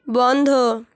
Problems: none marked